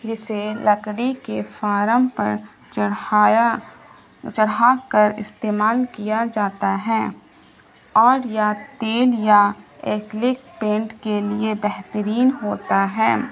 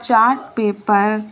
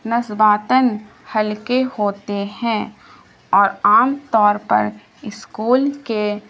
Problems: constant background noise, low volume